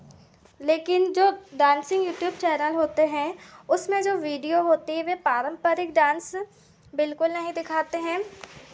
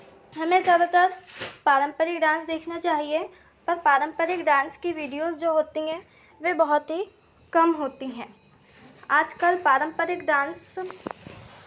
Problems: constant background noise, continuous background conversations